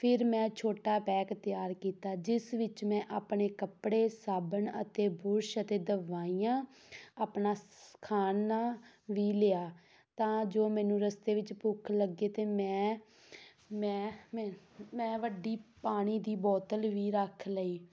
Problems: none marked